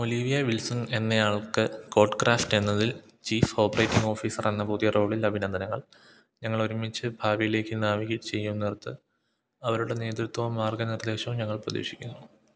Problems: low volume